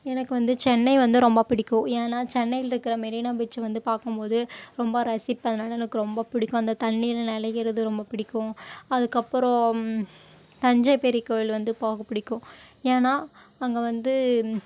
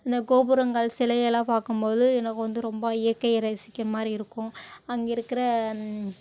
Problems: none marked